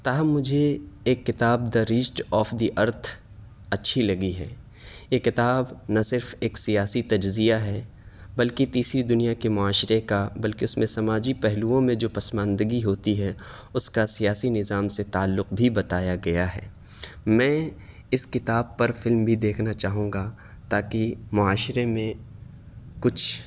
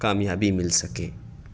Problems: none marked